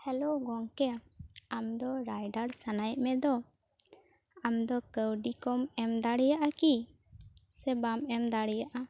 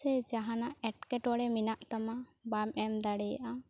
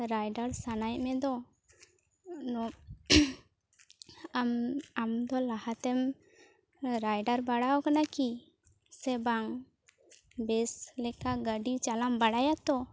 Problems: low volume